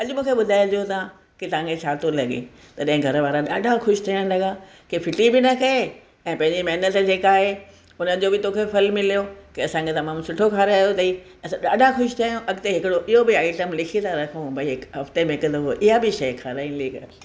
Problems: none marked